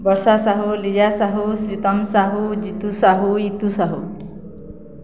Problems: none marked